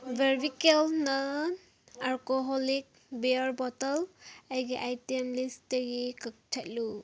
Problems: background sounds at intervals